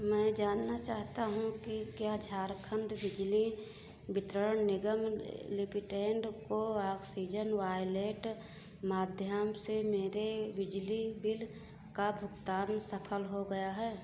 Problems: background sounds at intervals